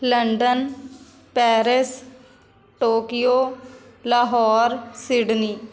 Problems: background conversations at intervals